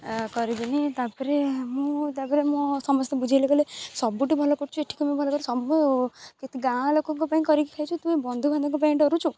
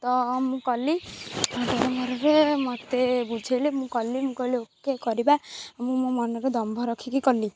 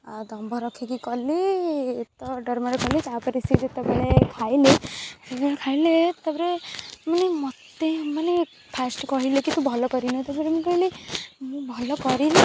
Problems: constant background noise